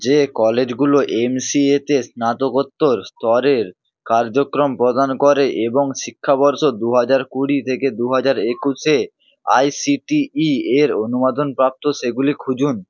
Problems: none marked